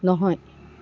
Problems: none marked